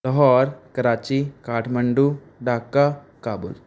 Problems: none marked